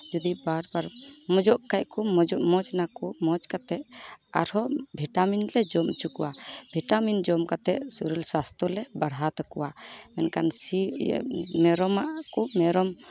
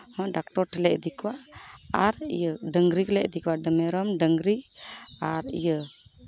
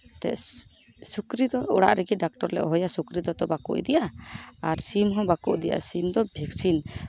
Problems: background sounds at intervals